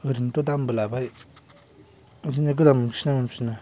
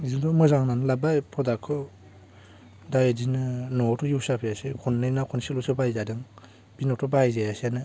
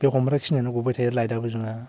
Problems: none marked